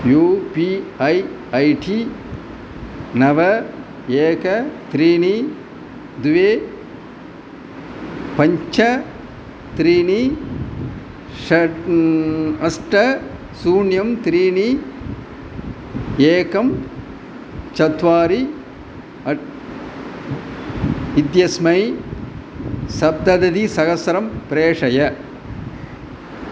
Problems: none marked